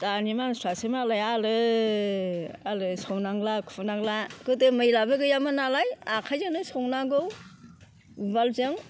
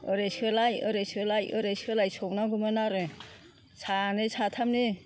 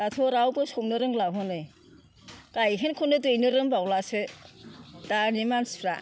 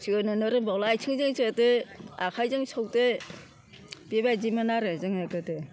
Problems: constant background noise